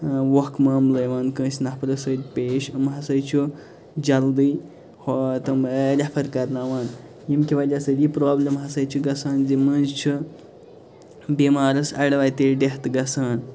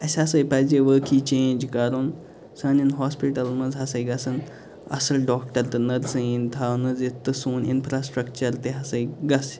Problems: constant background noise